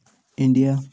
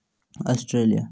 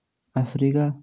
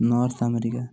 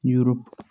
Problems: none marked